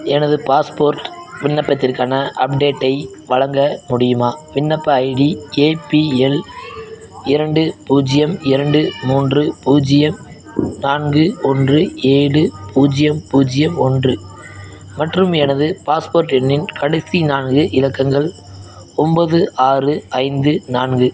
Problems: background sounds at intervals, background conversations at intervals